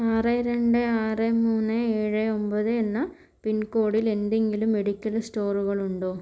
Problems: none marked